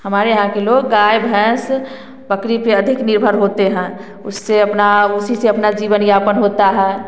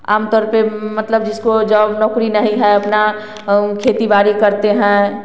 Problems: constant background noise